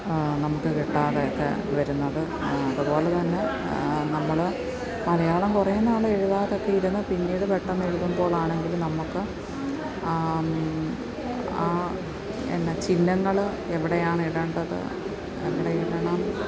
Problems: continuous background conversations, low volume